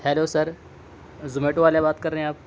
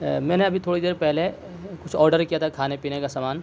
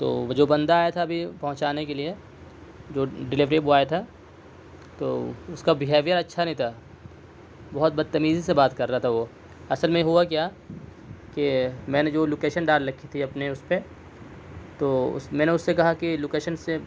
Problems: none marked